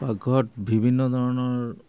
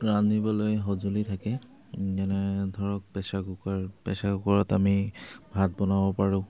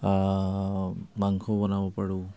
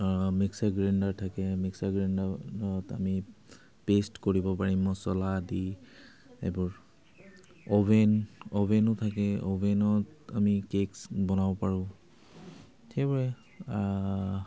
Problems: constant background noise